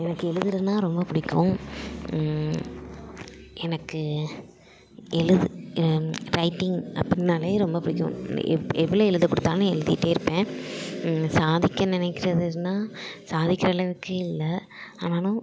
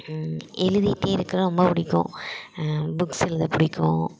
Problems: none marked